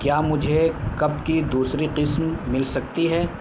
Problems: constant background noise